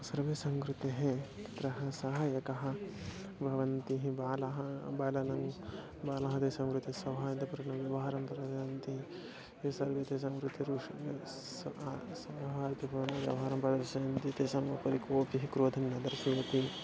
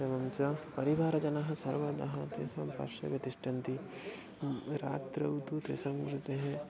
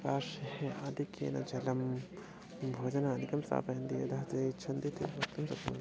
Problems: background sounds at intervals